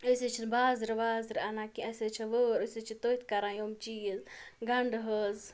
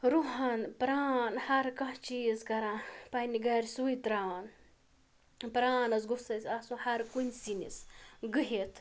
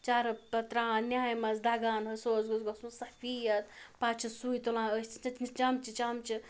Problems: background sounds at intervals